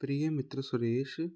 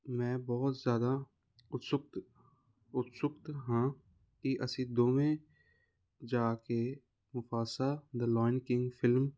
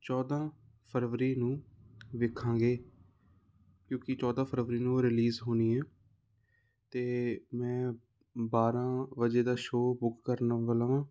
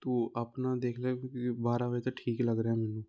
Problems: constant background noise